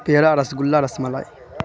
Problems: constant background noise